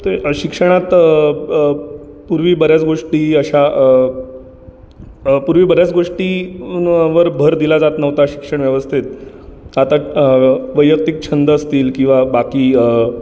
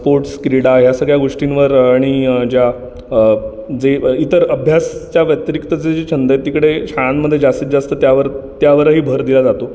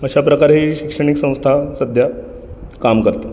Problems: background sounds at intervals, continuous background conversations